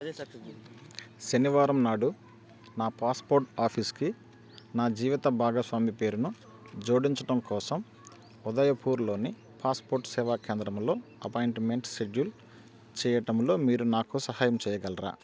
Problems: none marked